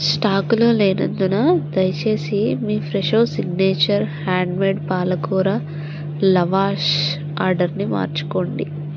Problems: constant background noise